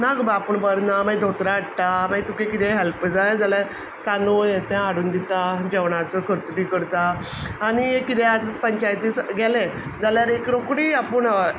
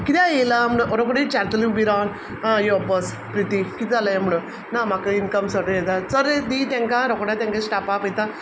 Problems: none marked